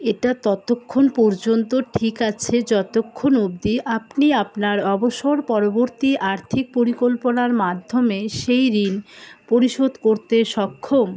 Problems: constant background noise